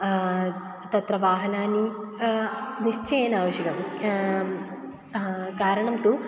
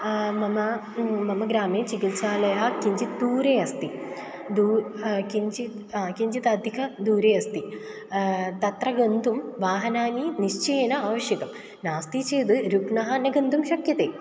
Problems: background sounds at intervals